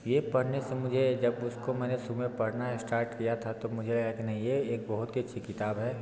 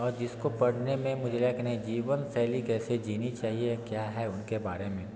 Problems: constant background noise, continuous background conversations